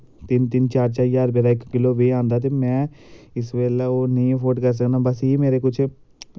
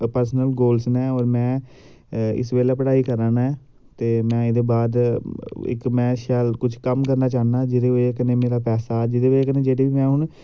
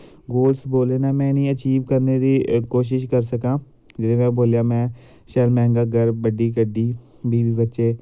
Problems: none marked